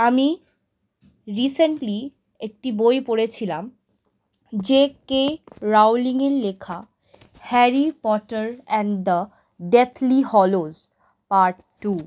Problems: none marked